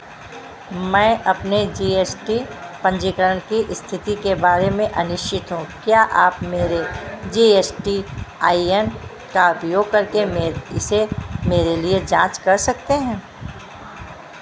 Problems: constant background noise